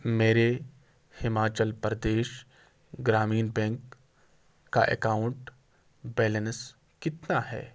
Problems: background sounds at intervals